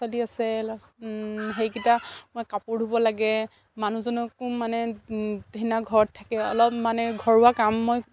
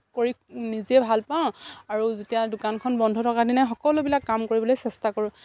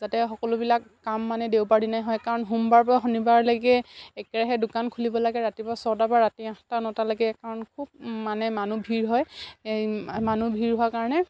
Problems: constant background noise